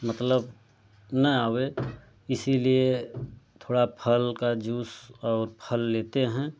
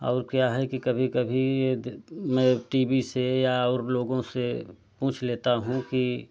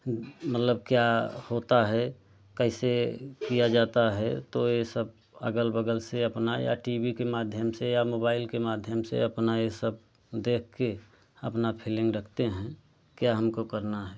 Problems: low volume